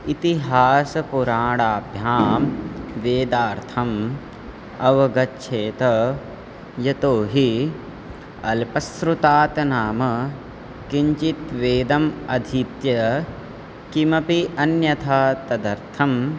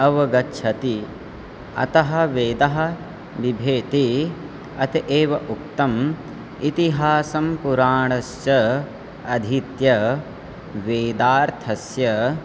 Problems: constant background noise